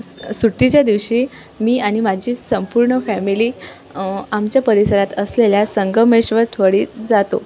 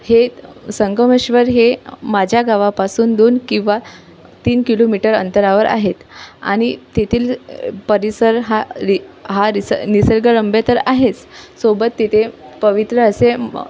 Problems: constant background noise